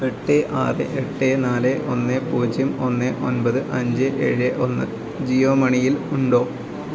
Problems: none marked